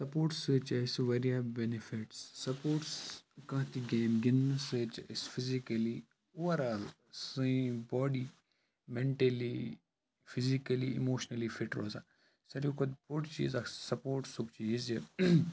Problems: background sounds at intervals